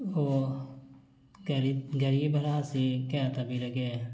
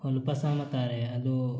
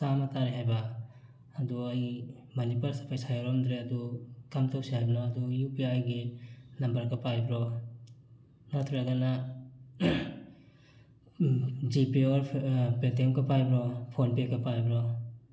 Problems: background sounds at intervals